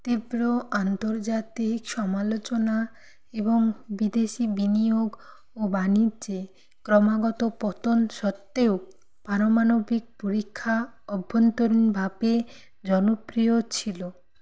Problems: none marked